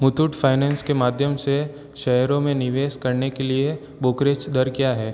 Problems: constant background noise